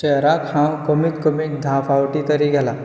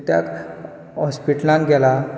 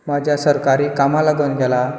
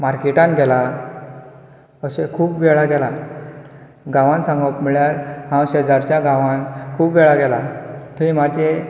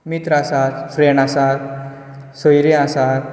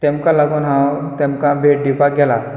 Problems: background sounds at intervals